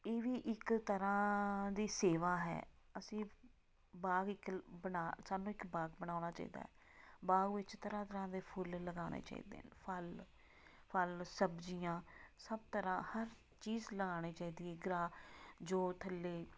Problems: background sounds at intervals